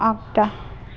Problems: none marked